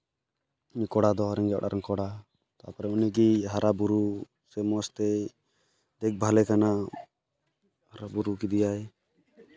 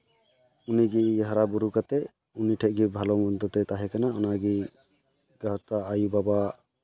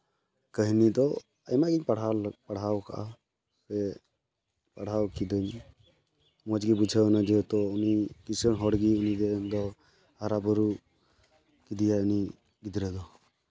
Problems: background sounds at intervals